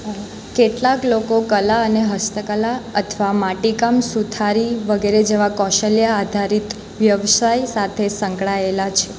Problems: none marked